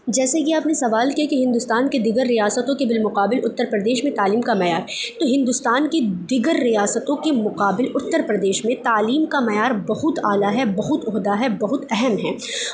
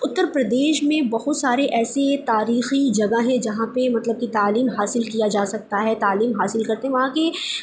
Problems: background sounds at intervals